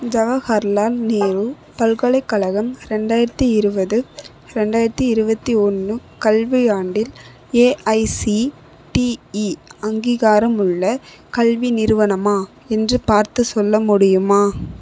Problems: none marked